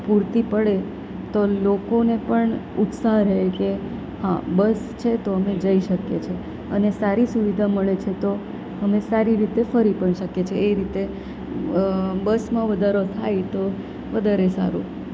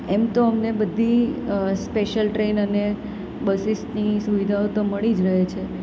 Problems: none marked